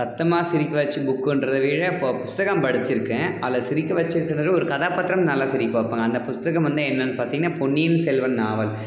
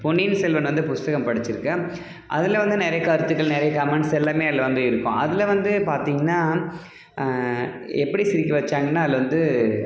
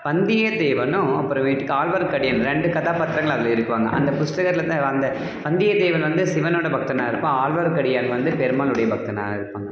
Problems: background sounds at intervals